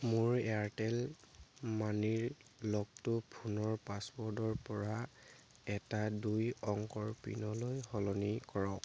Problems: none marked